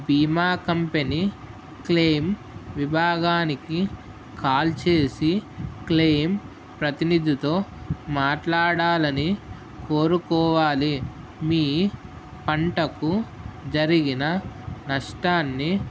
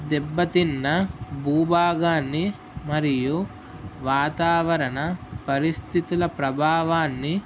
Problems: constant background noise